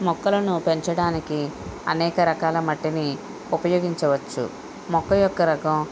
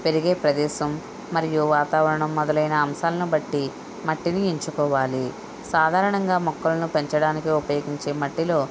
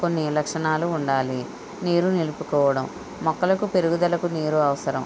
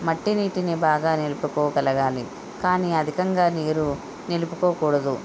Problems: constant background noise